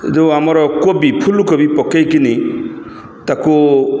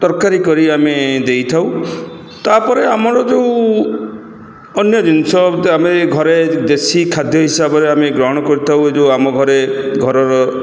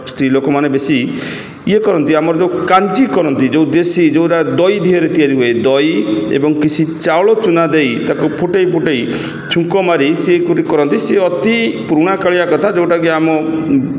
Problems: echo